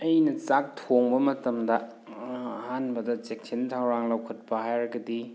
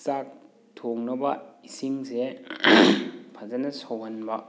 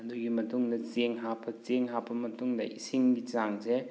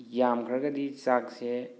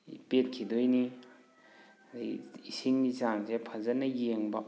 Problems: background sounds at intervals